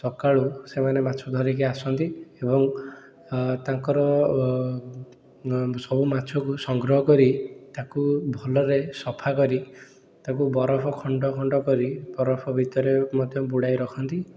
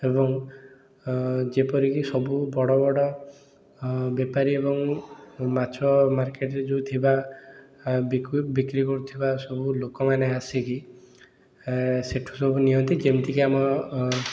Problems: background sounds at intervals